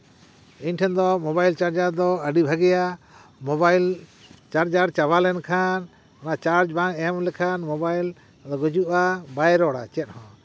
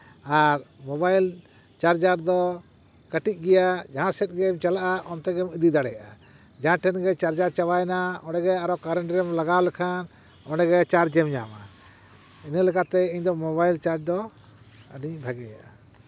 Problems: none marked